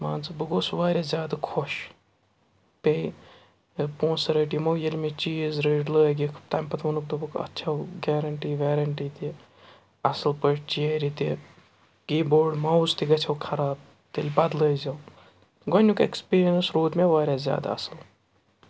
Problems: background sounds at intervals